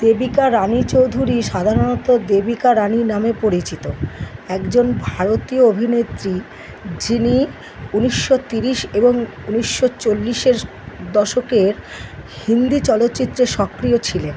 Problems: constant background noise